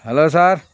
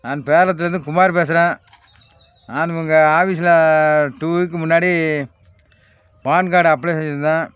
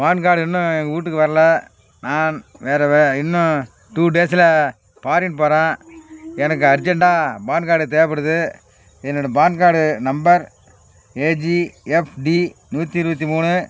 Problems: background sounds at intervals